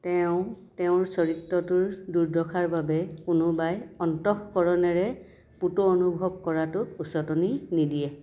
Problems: constant background noise, continuous background conversations